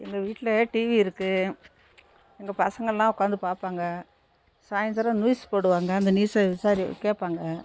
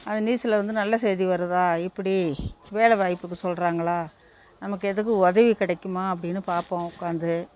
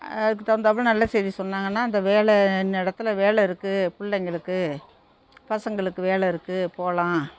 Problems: constant background noise